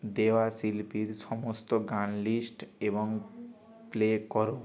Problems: constant background noise